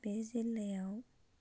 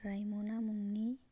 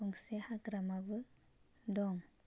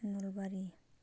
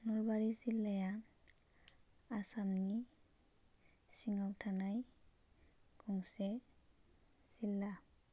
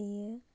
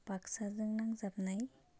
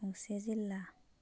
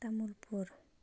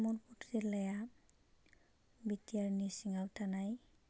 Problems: none marked